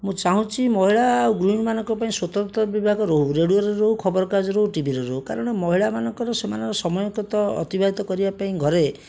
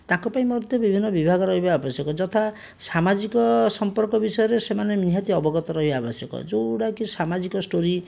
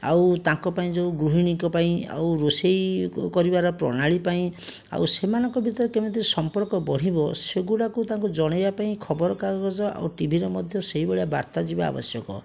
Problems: background sounds at intervals